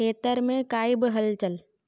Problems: none marked